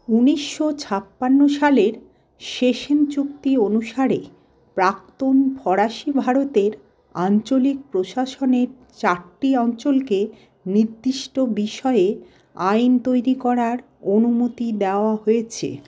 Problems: background sounds at intervals